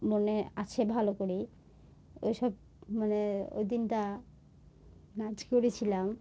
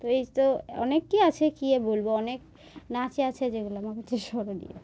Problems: none marked